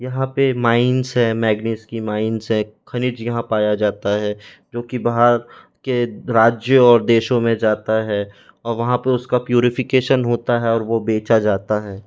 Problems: none marked